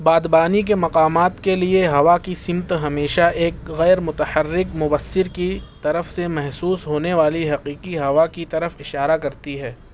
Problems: none marked